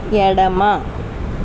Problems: constant background noise